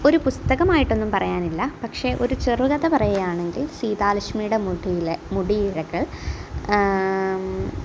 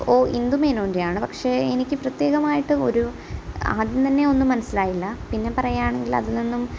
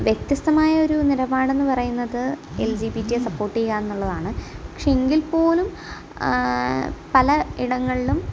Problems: background sounds at intervals